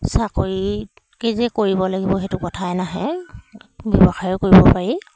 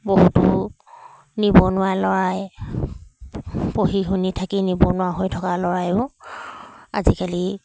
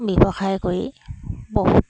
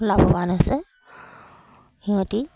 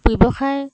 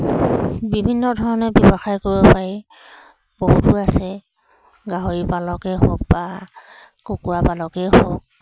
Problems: background sounds at intervals